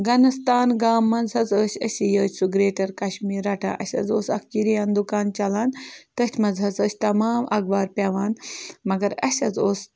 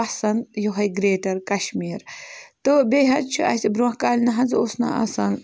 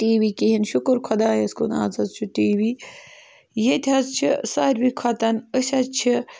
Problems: background sounds at intervals